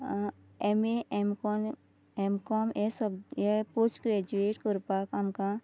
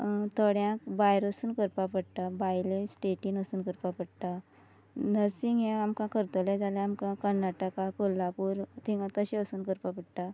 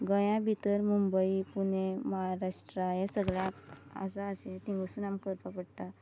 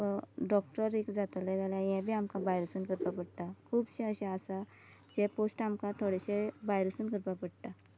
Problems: none marked